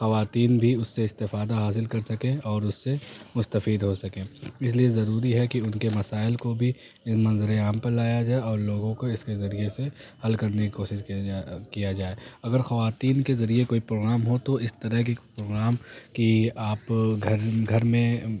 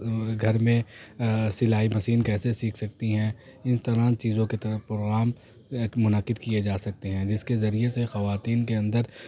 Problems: constant background noise